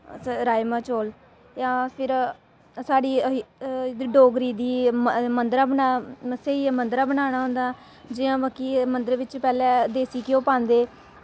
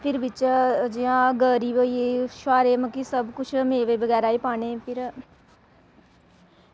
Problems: constant background noise